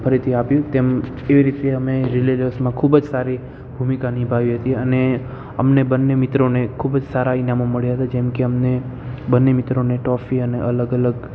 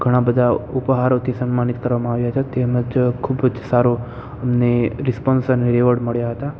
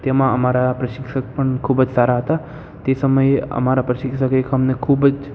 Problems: constant background noise, echo